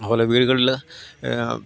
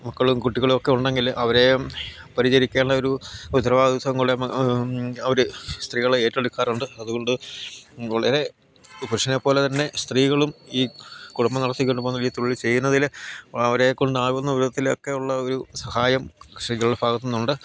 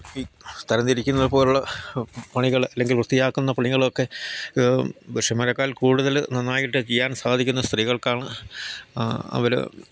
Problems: constant background noise, low volume